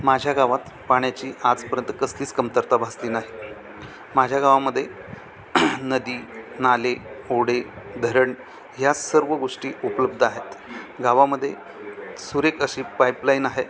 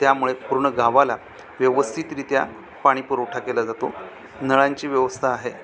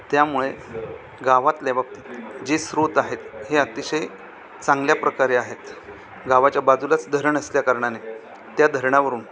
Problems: constant background noise, continuous background conversations